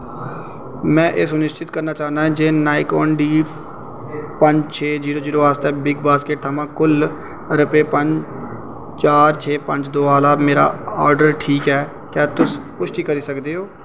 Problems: constant background noise, echo